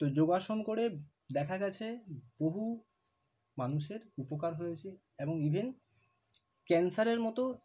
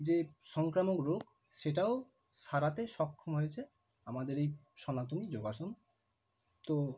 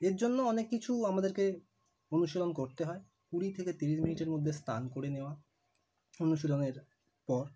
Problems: constant background noise